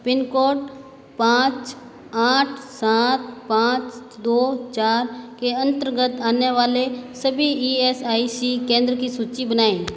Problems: constant background noise, echo